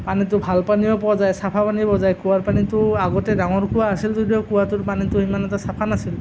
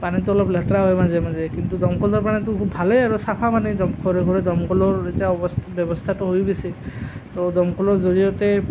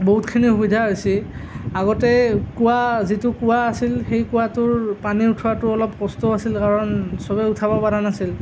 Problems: constant background noise